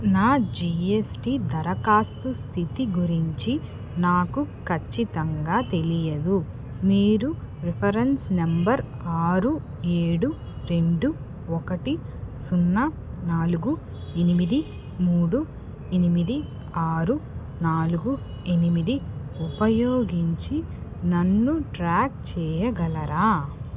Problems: background sounds at intervals